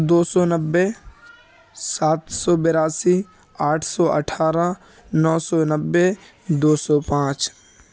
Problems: constant background noise, background conversations at intervals